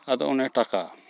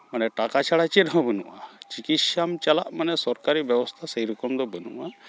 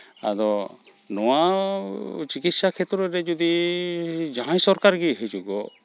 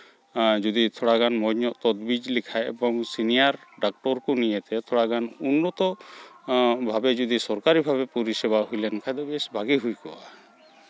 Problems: background sounds at intervals, continuous background conversations